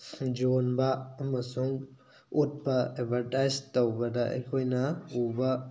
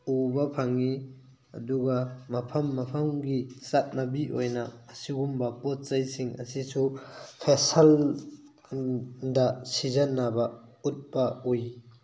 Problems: none marked